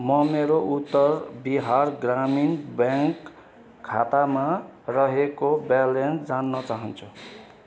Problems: constant background noise